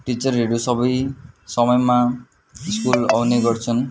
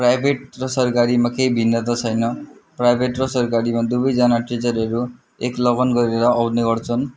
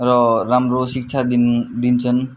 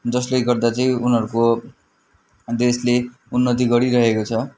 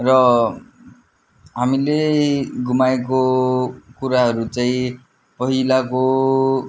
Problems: continuous background conversations